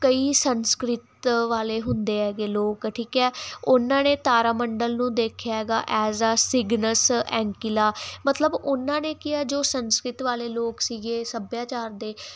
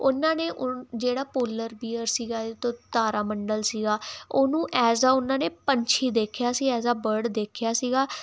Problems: constant background noise